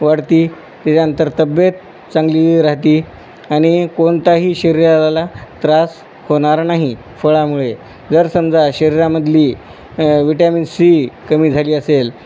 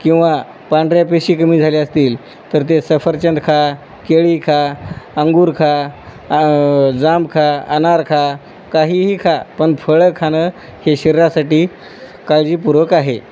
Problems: none marked